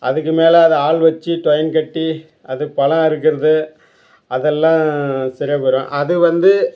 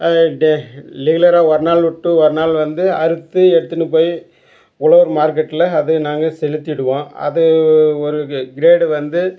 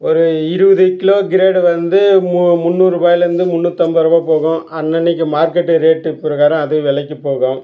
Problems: none marked